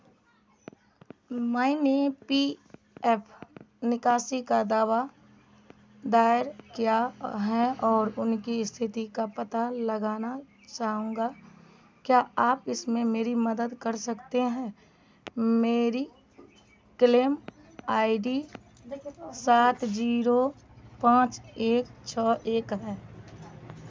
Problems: background sounds at intervals